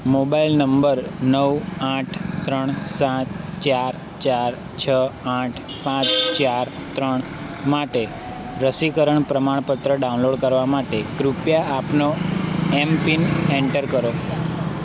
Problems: constant background noise